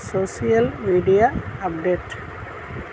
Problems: constant background noise